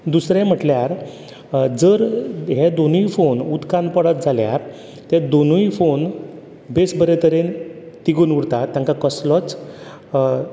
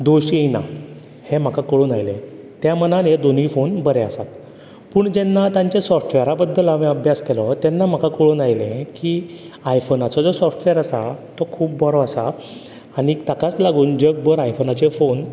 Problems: constant background noise